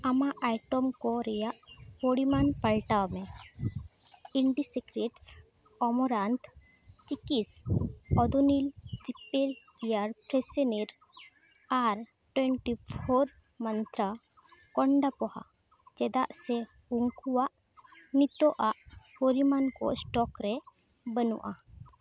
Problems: background sounds at intervals